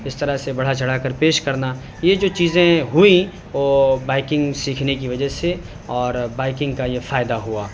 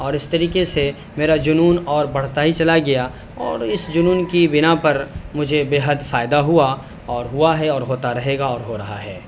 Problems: constant background noise